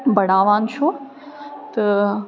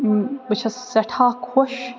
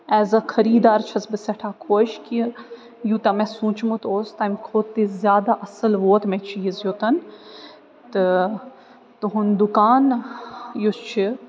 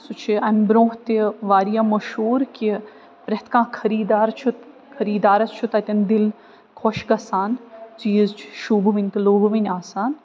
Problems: none marked